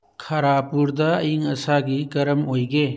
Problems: none marked